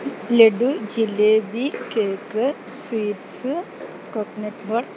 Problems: constant background noise